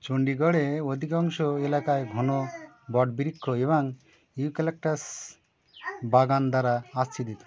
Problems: none marked